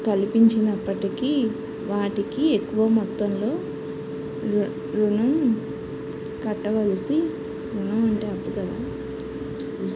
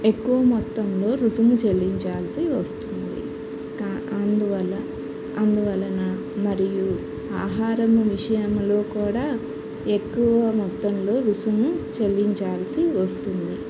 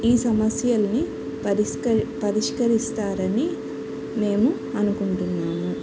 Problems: constant background noise, background conversations at intervals